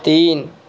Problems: none marked